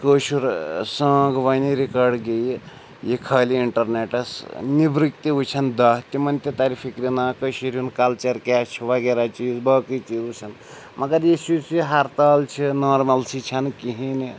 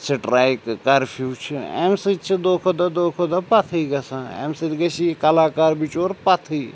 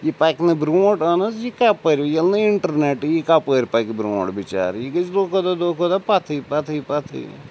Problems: constant background noise